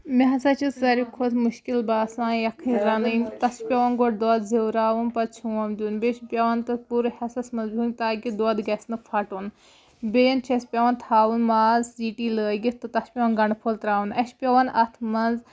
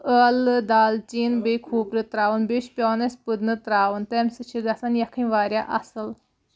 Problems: background sounds at intervals